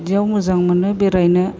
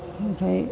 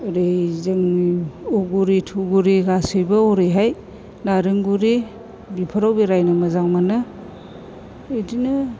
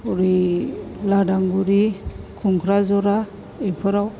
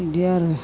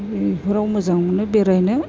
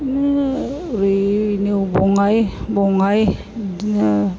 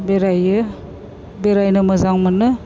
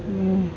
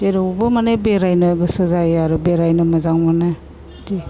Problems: none marked